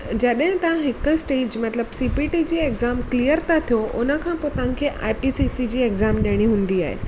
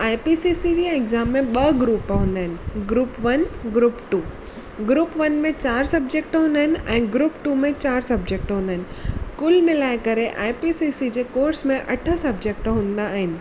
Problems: constant background noise